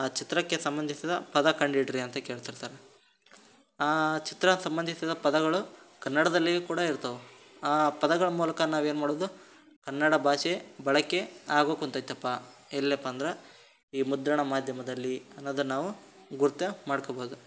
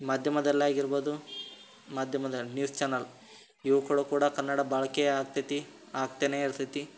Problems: none marked